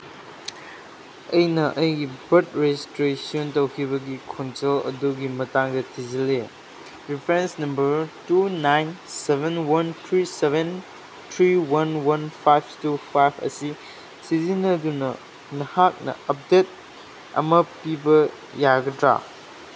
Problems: background sounds at intervals